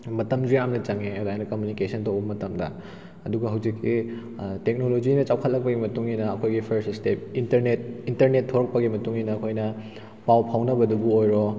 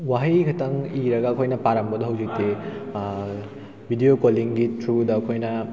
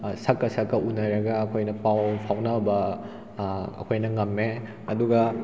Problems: background sounds at intervals